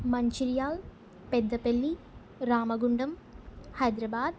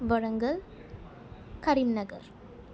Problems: constant background noise